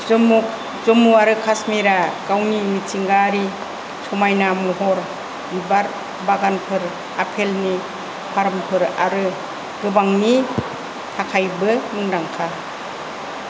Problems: constant background noise